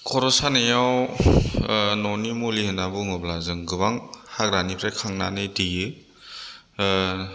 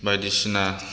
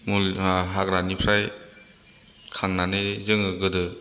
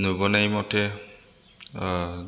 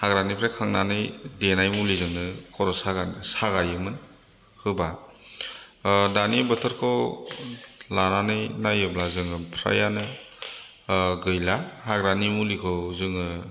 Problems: none marked